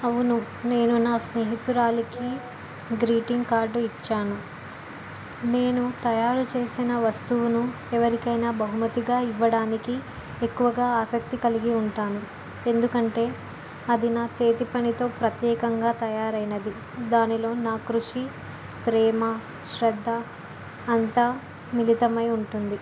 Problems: constant background noise